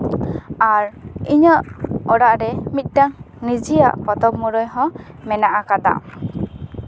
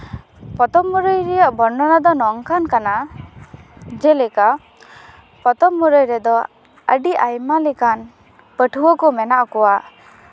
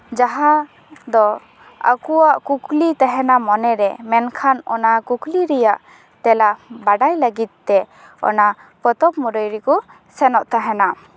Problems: background sounds at intervals